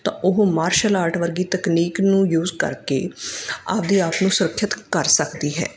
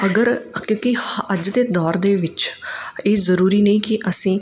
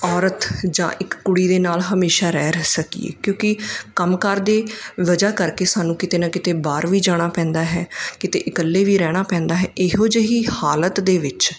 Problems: background sounds at intervals